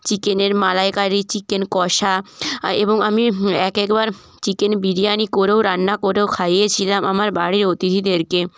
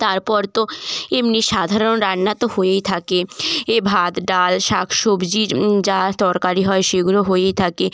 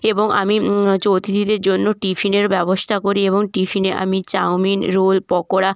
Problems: none marked